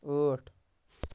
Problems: none marked